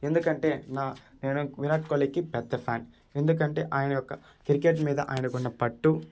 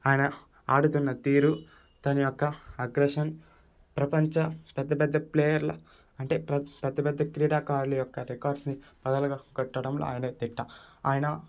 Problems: none marked